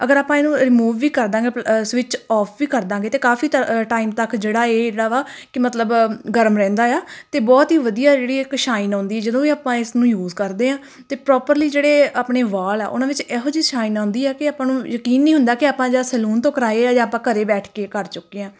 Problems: none marked